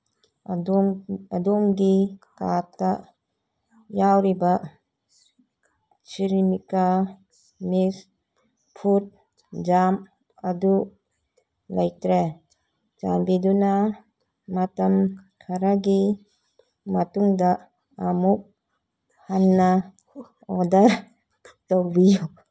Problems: background conversations at intervals